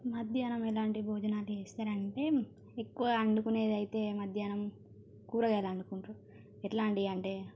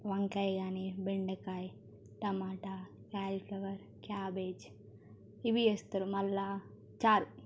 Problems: none marked